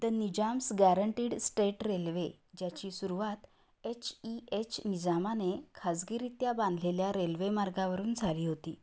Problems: low volume